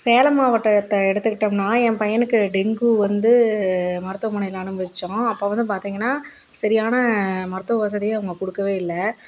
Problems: constant background noise